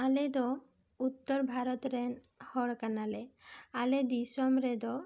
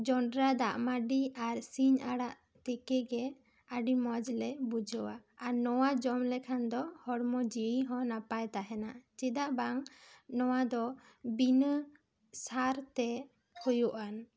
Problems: none marked